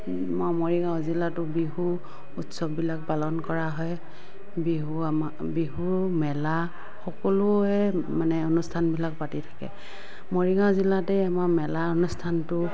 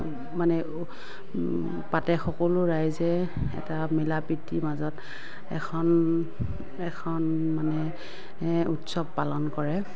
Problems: background sounds at intervals, background conversations at intervals